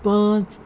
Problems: none marked